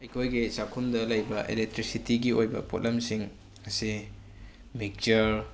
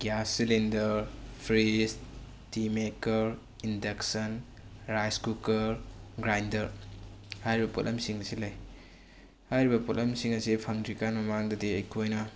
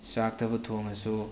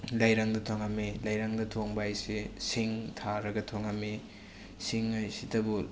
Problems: constant background noise